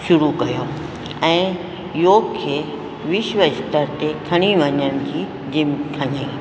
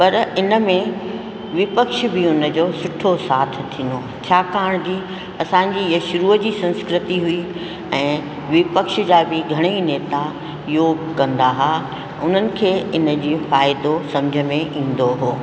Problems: constant background noise, echo